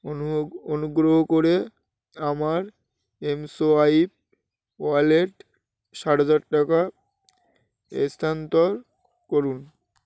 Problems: constant background noise